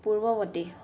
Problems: low volume